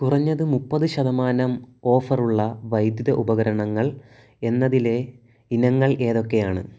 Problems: none marked